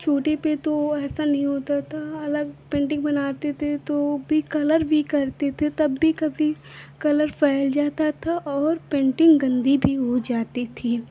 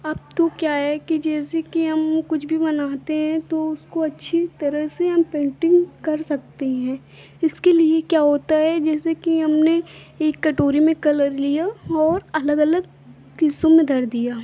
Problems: background sounds at intervals